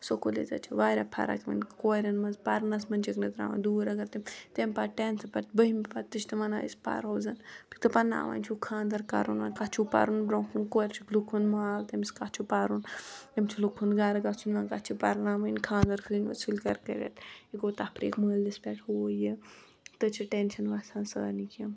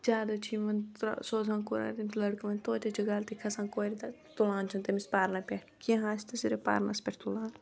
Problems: continuous background conversations